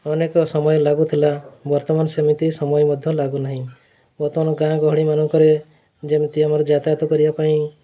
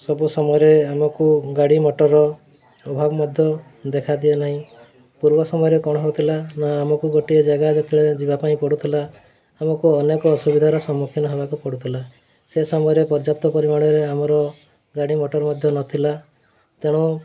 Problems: constant background noise, continuous background conversations